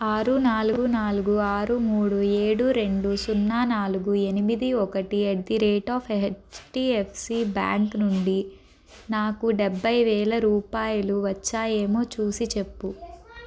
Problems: constant background noise, background conversations at intervals